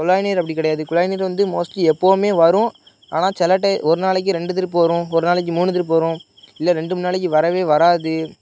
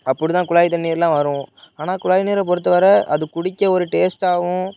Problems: background sounds at intervals, background conversations at intervals